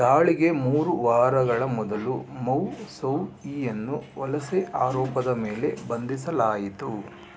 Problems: constant background noise